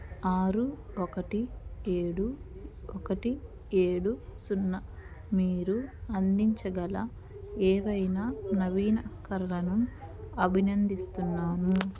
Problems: background sounds at intervals